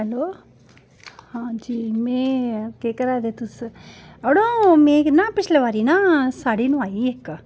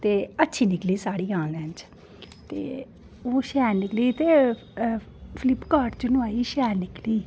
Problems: none marked